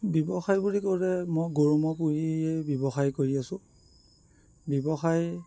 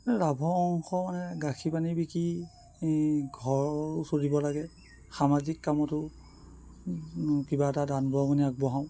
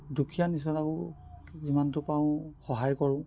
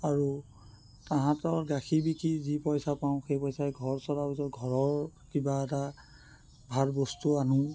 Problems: none marked